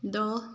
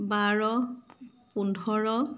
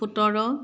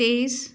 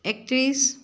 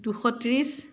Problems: constant background noise